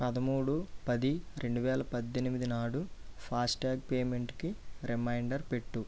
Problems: low volume